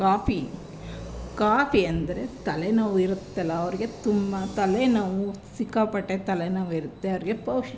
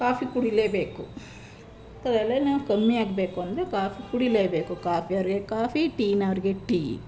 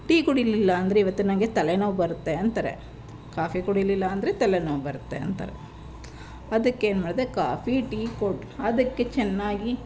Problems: background sounds at intervals